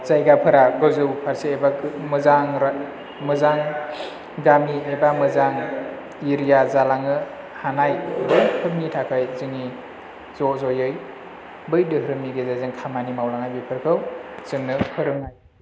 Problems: constant background noise, low volume